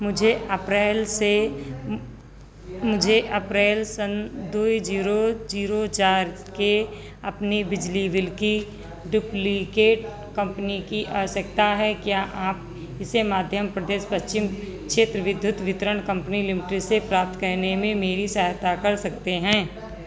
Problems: constant background noise